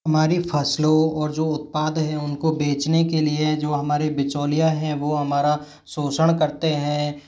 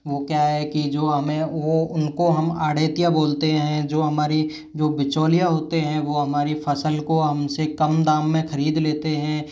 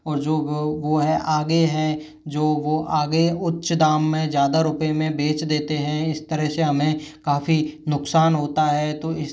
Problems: none marked